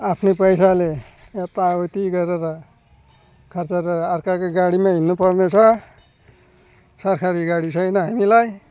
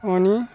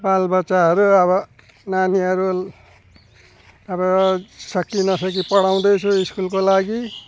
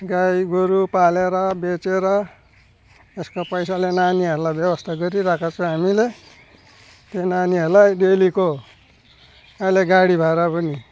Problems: none marked